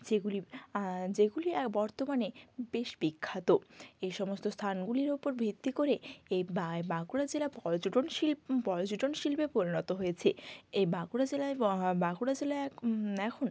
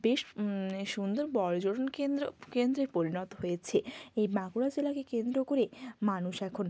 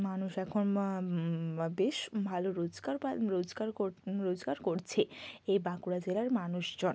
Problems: background sounds at intervals